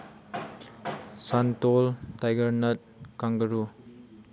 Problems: background sounds at intervals